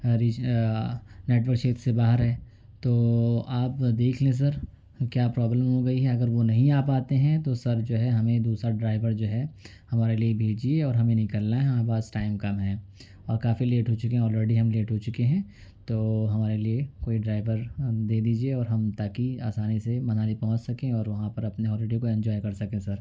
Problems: low volume